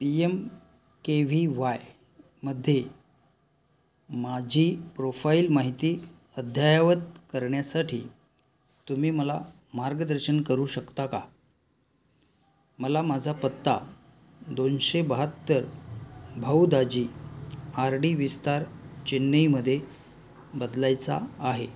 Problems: background sounds at intervals